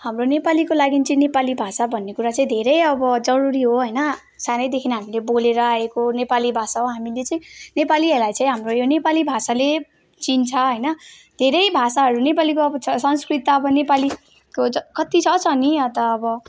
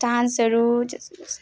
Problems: background conversations at intervals